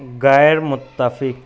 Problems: constant background noise